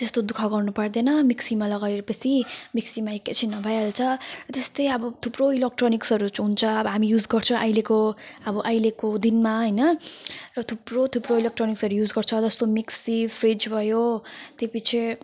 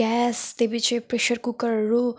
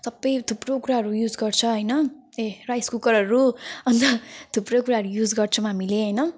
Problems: background sounds at intervals